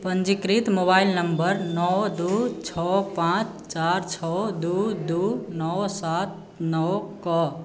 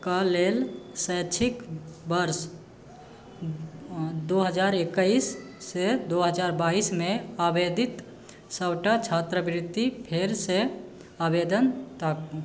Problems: background sounds at intervals